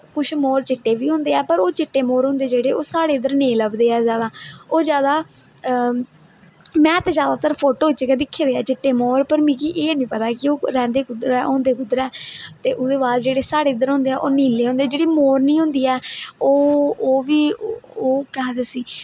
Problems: none marked